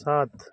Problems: background sounds at intervals